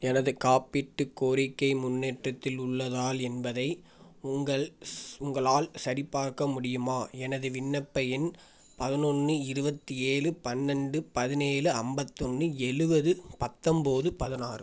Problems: none marked